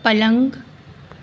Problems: none marked